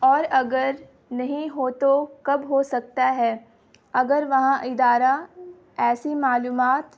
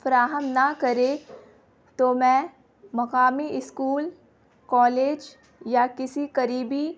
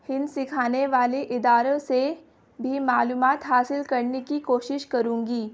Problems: constant background noise